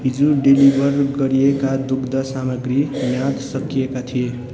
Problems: constant background noise